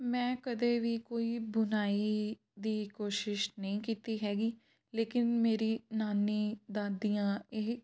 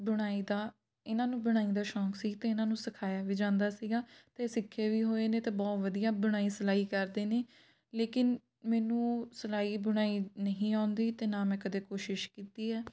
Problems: background sounds at intervals